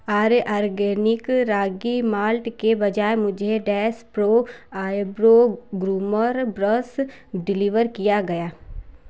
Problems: constant background noise